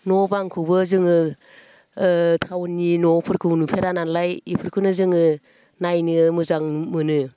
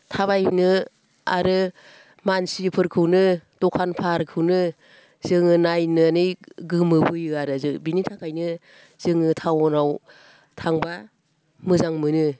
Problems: none marked